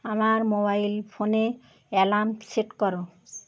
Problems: constant background noise